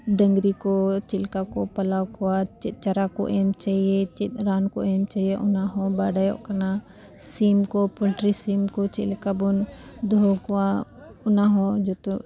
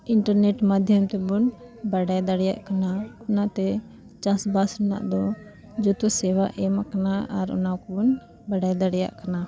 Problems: constant background noise, background conversations at intervals